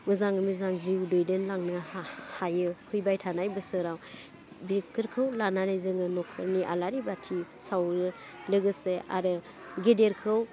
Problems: constant background noise